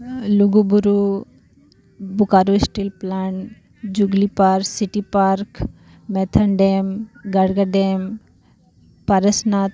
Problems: none marked